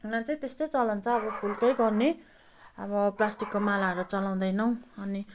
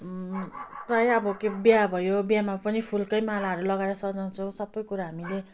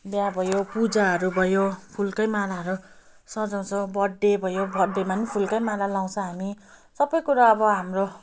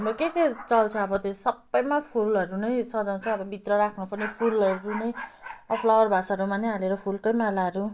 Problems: none marked